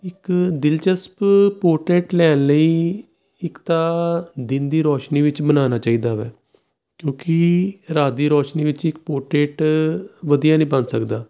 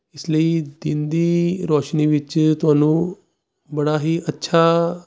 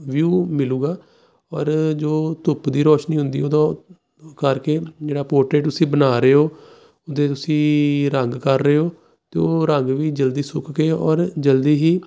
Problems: none marked